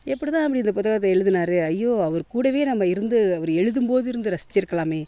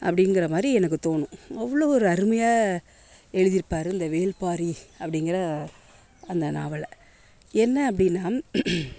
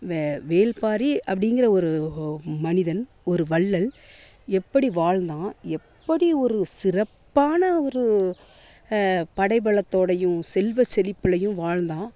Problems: constant background noise